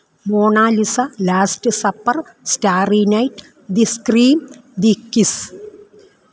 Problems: none marked